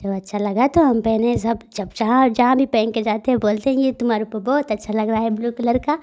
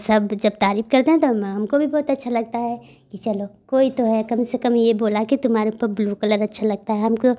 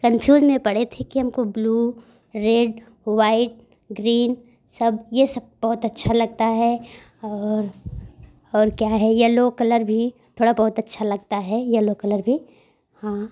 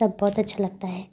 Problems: none marked